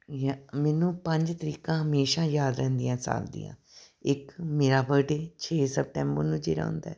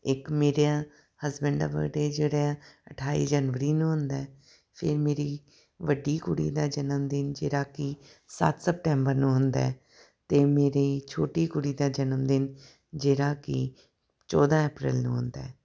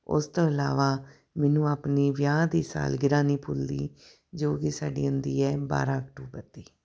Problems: background sounds at intervals